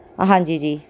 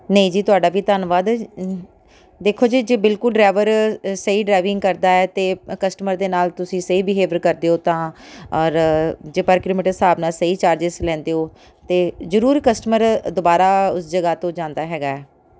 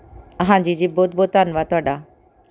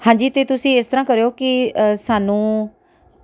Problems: none marked